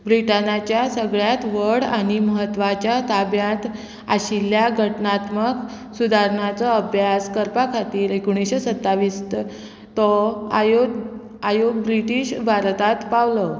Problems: constant background noise